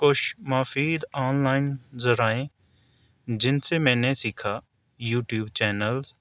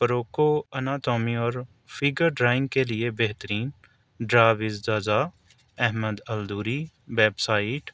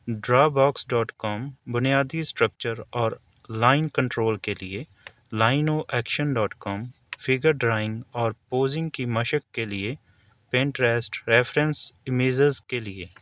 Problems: none marked